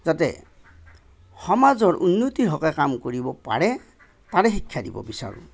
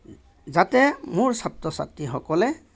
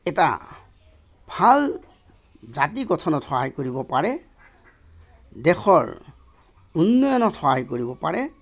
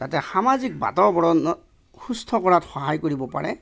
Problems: none marked